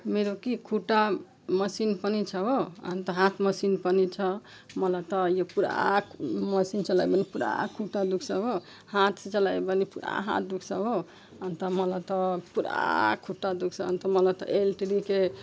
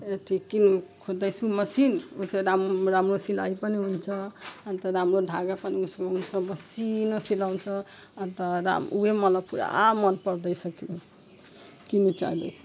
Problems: background sounds at intervals